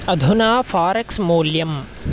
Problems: constant background noise